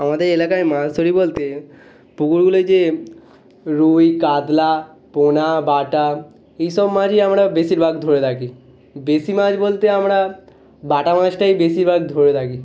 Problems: background sounds at intervals